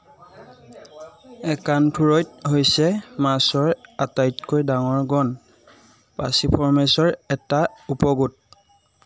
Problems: none marked